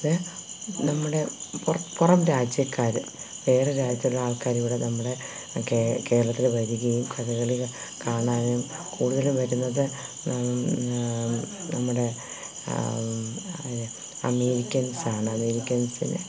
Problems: constant background noise